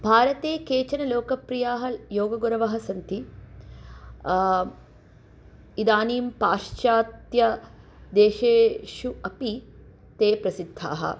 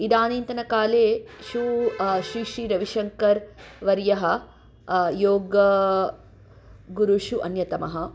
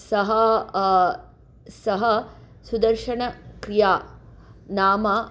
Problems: background conversations at intervals